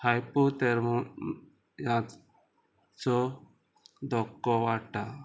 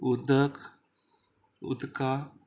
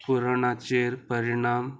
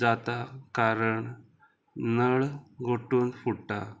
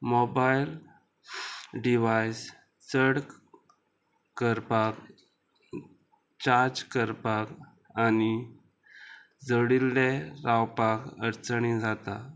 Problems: constant background noise, background conversations at intervals